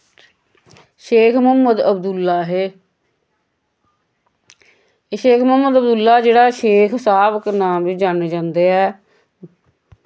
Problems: background sounds at intervals, echo